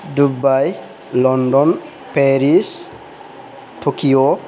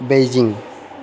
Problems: background conversations at intervals